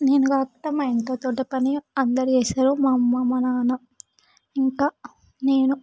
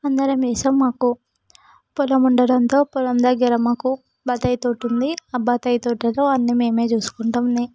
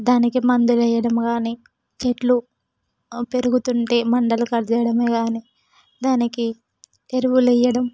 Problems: background sounds at intervals